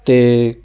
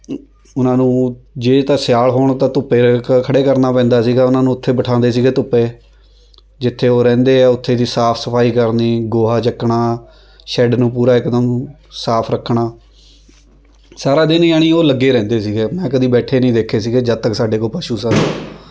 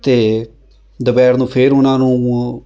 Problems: continuous background conversations